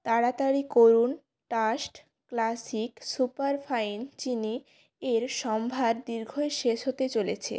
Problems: none marked